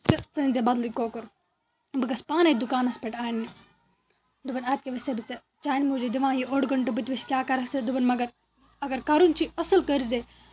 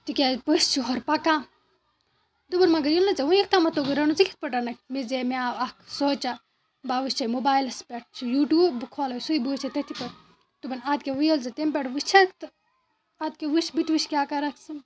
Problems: constant background noise